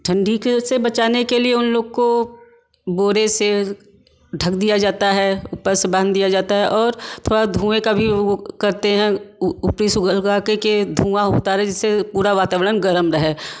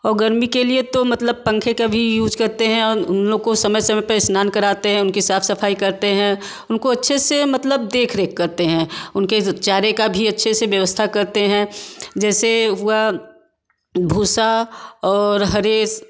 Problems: background sounds at intervals